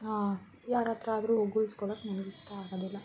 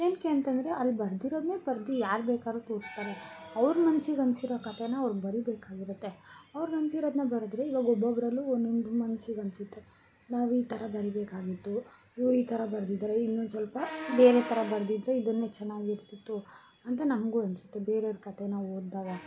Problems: background sounds at intervals